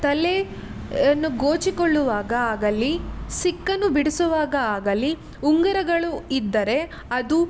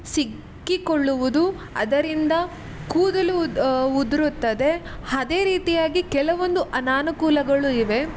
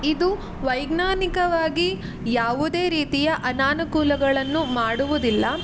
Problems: constant background noise